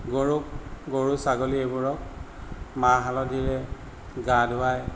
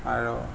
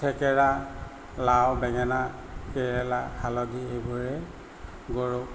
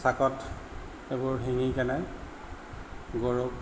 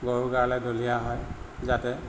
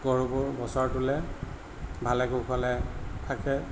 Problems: none marked